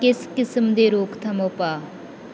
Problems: background sounds at intervals